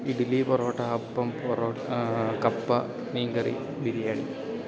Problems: constant background noise, low volume